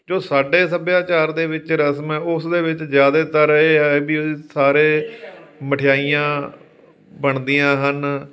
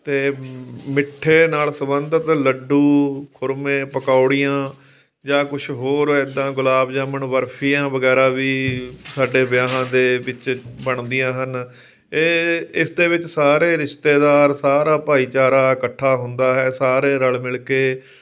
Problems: background sounds at intervals, background conversations at intervals